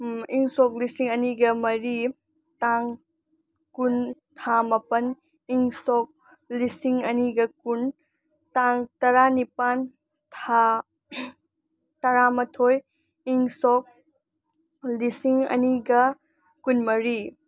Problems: none marked